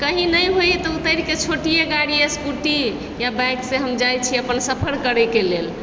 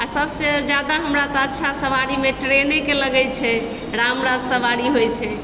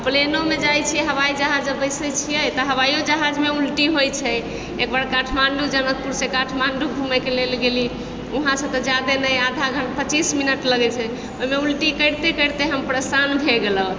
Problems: constant background noise